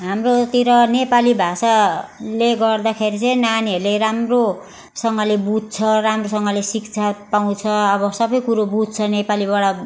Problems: none marked